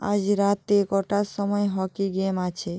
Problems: none marked